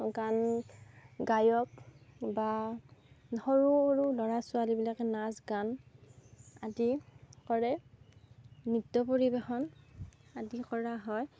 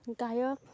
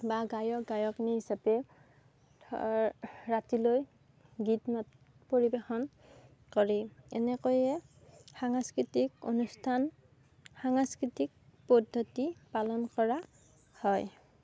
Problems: none marked